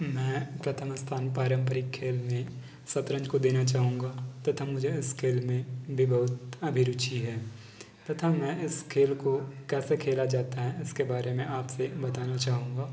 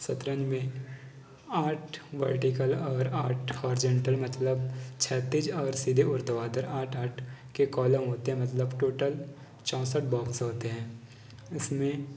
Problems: constant background noise, background conversations at intervals